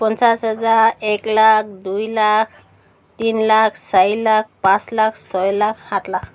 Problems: none marked